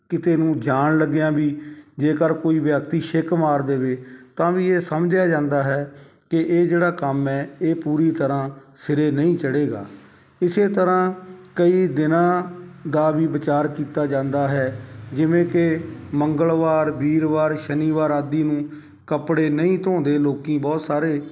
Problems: background sounds at intervals